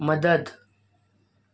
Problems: none marked